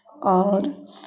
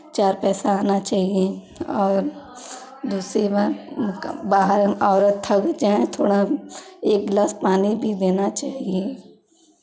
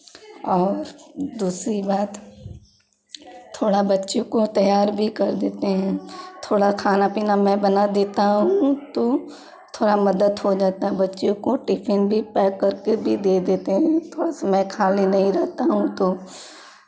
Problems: background sounds at intervals